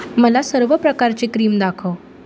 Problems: none marked